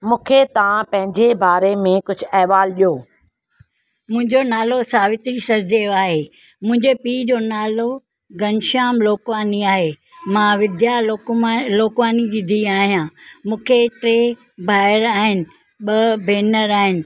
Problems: none marked